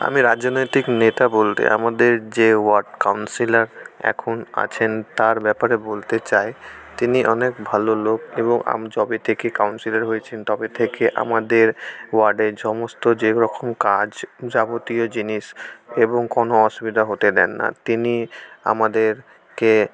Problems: constant background noise, background conversations at intervals